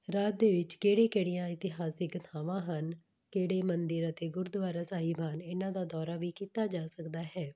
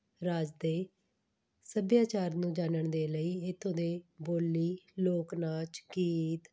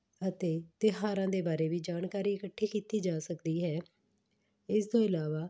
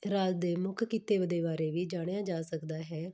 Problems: background sounds at intervals